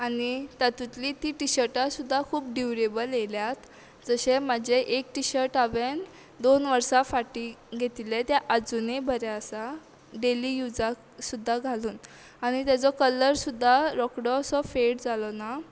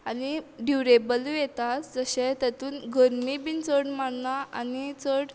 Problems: background sounds at intervals